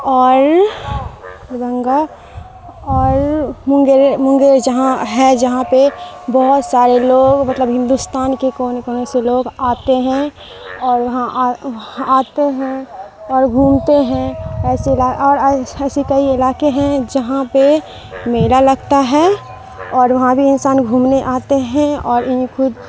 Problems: constant background noise